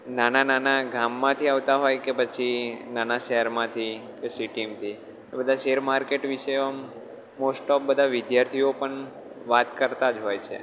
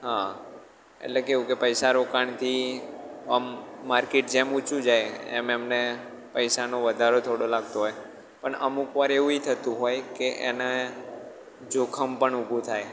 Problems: background sounds at intervals